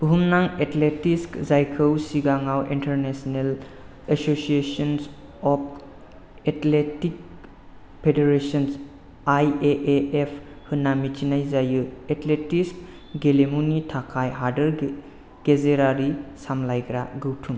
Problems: none marked